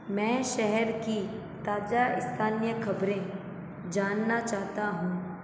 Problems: none marked